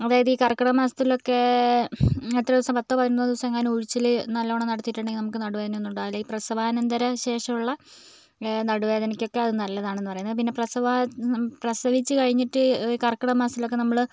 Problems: background sounds at intervals